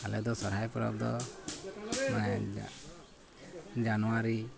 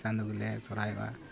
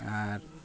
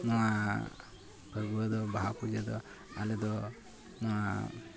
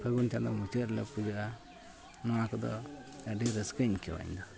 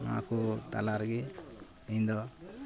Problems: background sounds at intervals, continuous background conversations